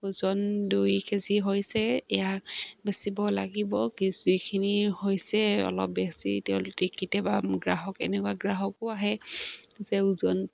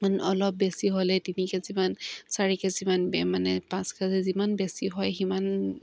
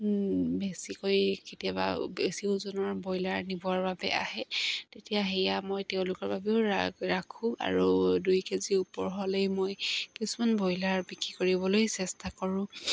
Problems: constant background noise